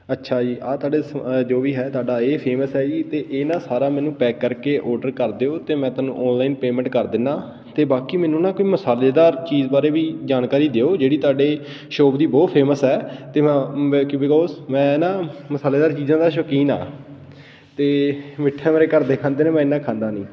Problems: constant background noise